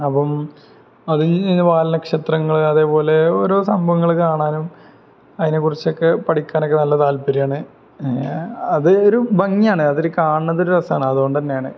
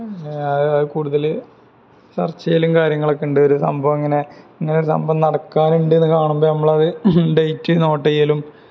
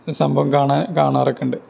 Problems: none marked